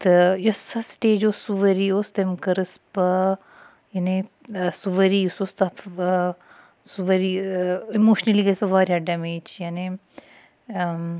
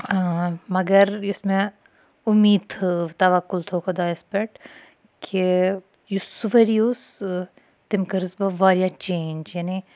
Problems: none marked